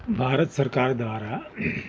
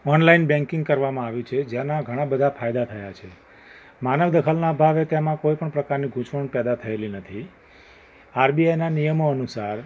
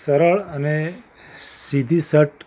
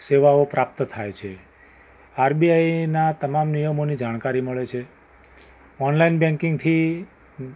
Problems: background sounds at intervals